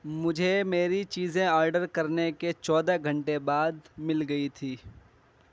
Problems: none marked